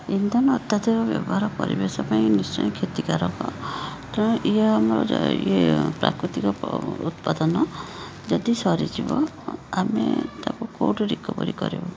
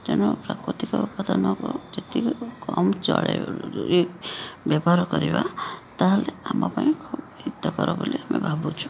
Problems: constant background noise